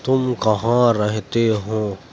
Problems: constant background noise